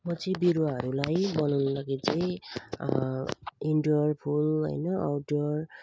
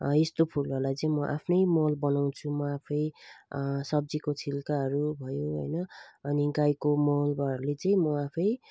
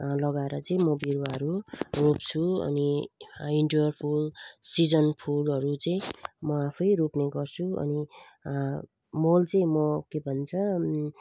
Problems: constant background noise